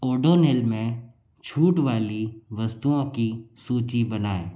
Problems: none marked